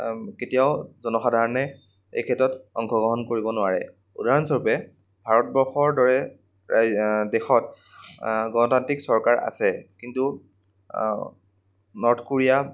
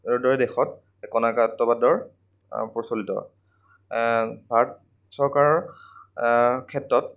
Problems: none marked